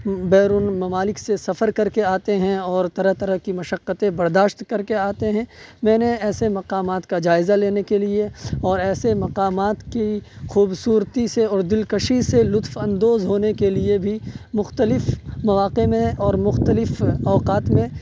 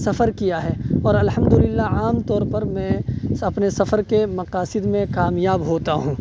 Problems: background sounds at intervals